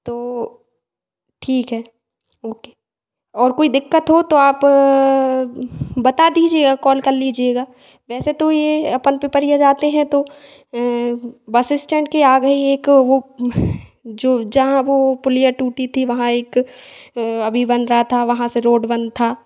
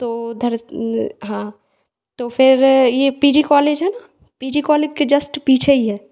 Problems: echo